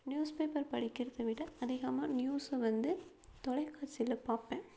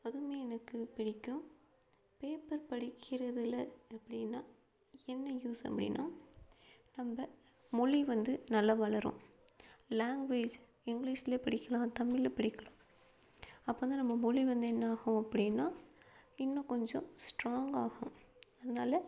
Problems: none marked